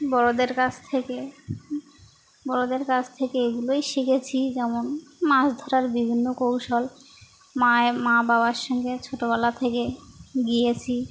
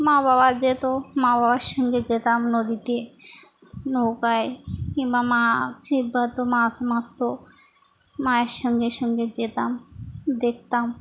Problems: none marked